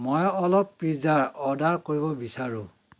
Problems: constant background noise